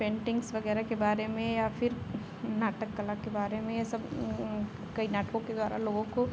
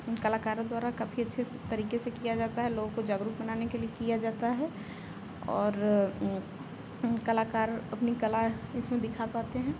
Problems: none marked